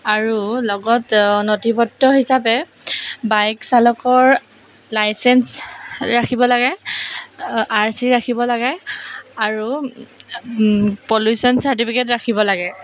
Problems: background sounds at intervals